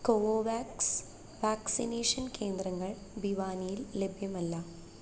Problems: none marked